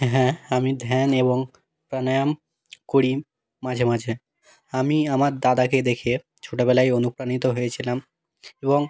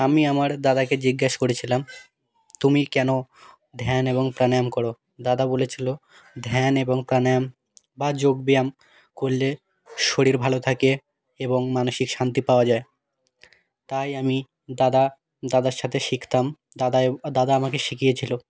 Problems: background sounds at intervals